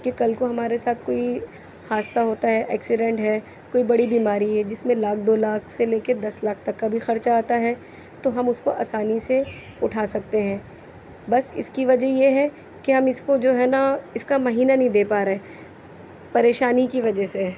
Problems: constant background noise